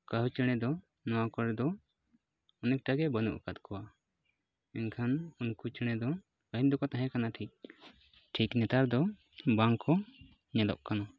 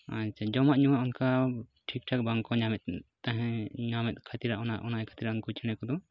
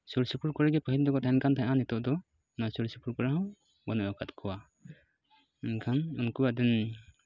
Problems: background sounds at intervals